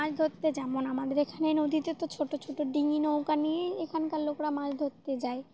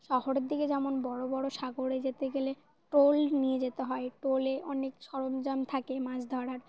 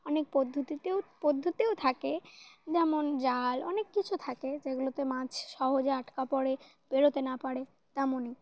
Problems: constant background noise